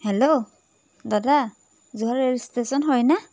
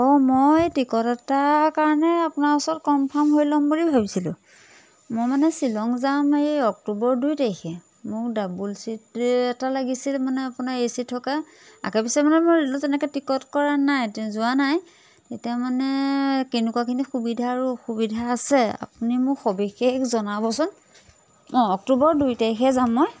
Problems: constant background noise